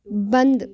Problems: background sounds at intervals